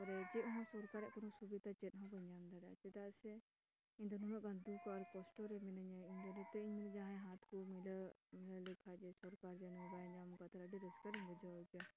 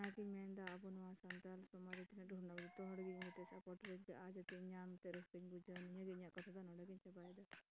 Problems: constant background noise, low volume